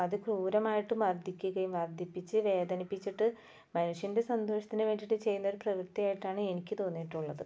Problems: low volume